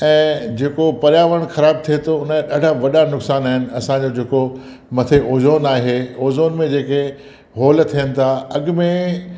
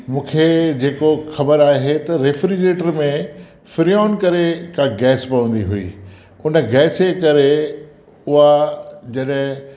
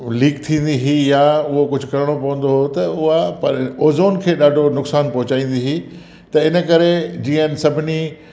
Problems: constant background noise, echo